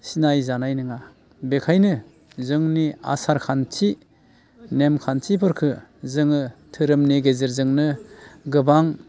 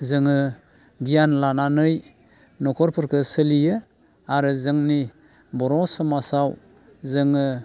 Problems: constant background noise